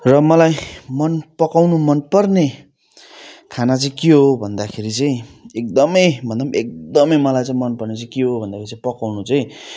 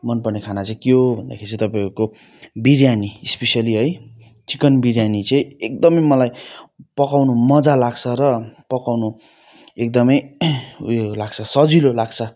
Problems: none marked